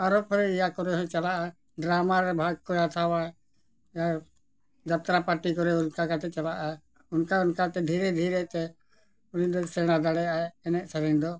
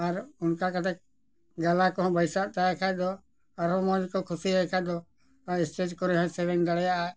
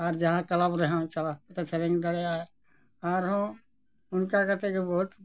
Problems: none marked